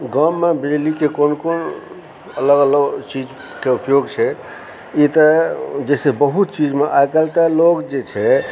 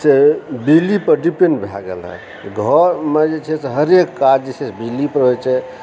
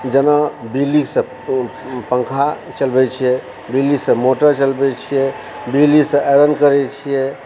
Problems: constant background noise